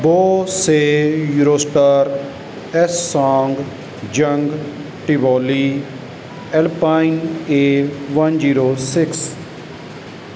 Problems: background sounds at intervals